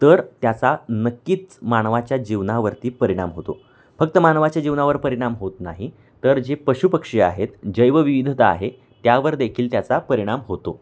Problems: constant background noise, background conversations at intervals